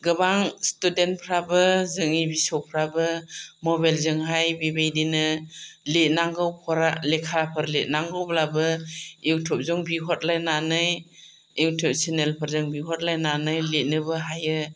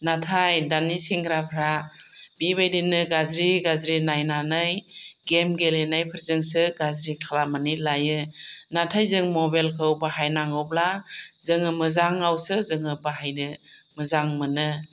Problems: none marked